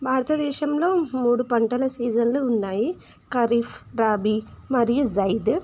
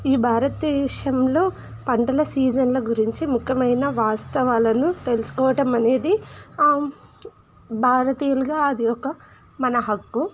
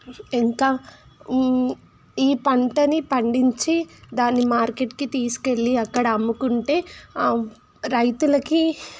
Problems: constant background noise